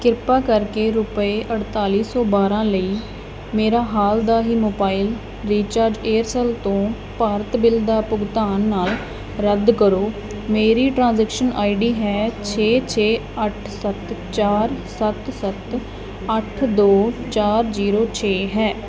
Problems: continuous background conversations